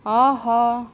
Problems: background sounds at intervals